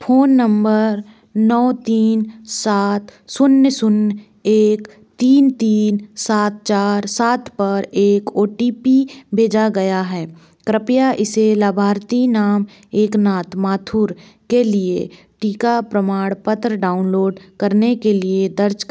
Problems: background sounds at intervals